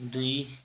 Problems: none marked